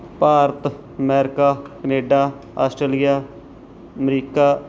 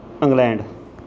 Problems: background sounds at intervals